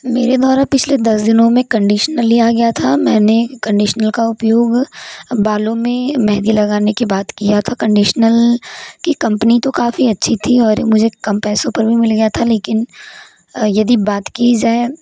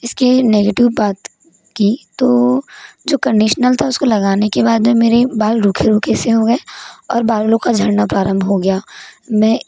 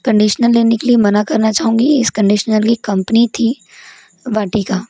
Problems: constant background noise